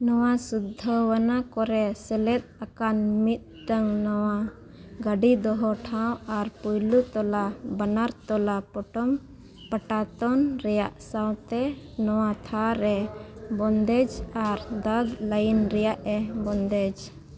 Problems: background conversations at intervals